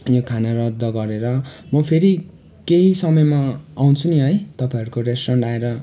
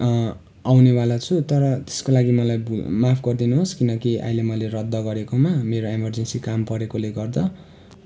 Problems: background sounds at intervals